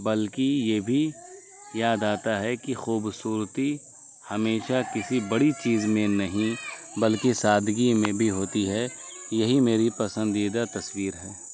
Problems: constant background noise